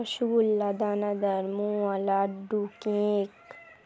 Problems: none marked